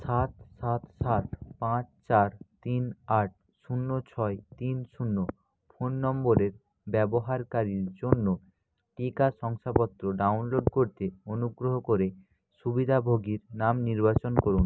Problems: none marked